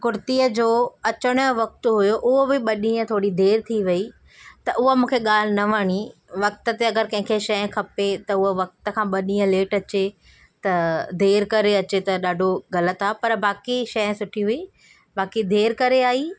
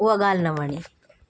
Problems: none marked